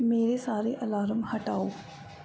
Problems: background conversations at intervals